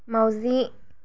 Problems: none marked